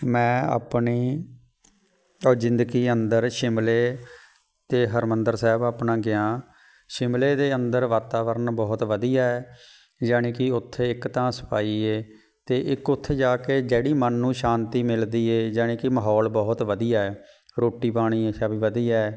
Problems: background sounds at intervals